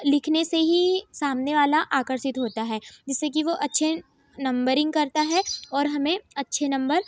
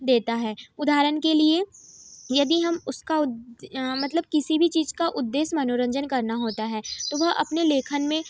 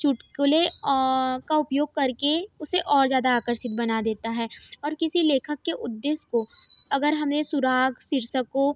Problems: none marked